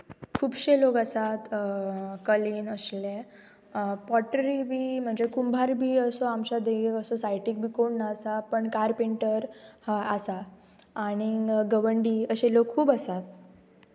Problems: background sounds at intervals